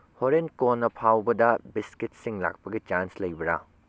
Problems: low volume